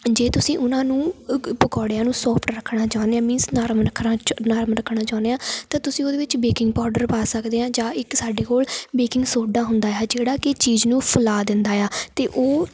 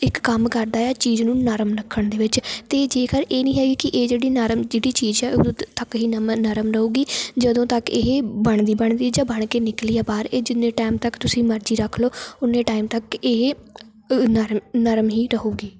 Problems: background sounds at intervals